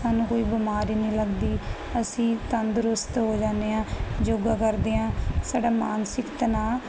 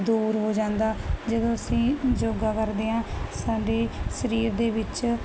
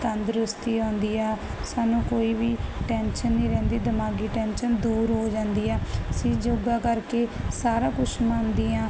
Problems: none marked